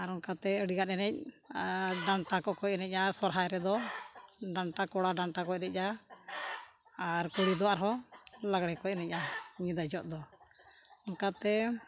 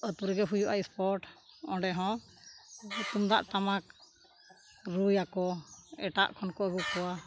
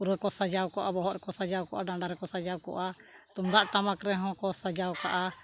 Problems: background sounds at intervals